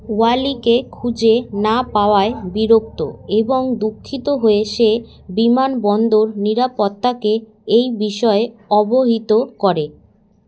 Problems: none marked